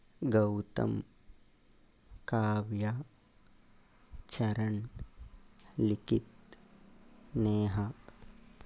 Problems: constant background noise, low volume